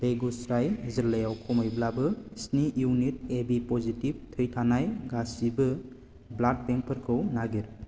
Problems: none marked